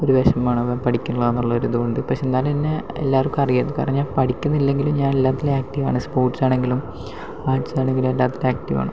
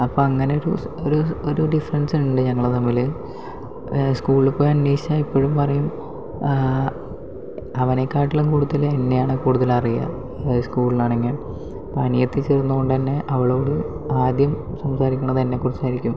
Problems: low volume